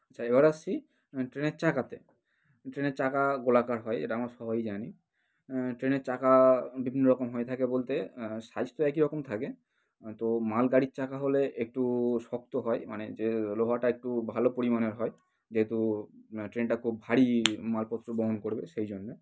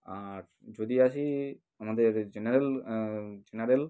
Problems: none marked